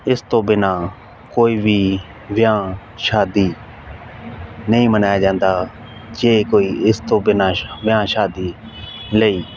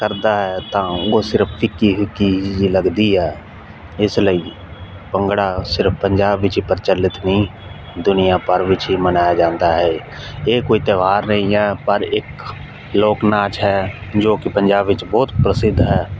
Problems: constant background noise